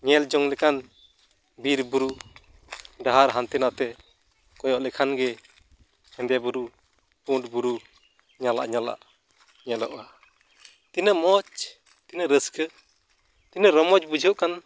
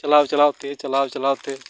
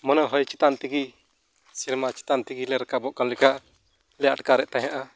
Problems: none marked